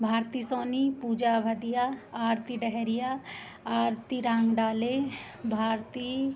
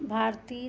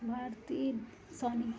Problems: constant background noise